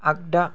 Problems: none marked